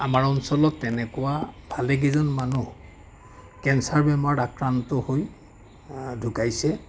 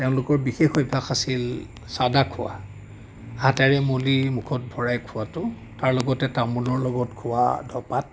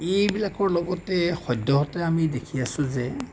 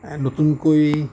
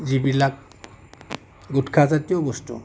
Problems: constant background noise, background conversations at intervals